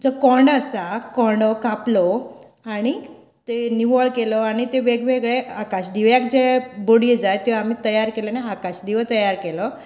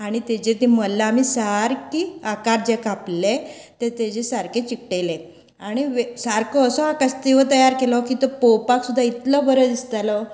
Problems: background conversations at intervals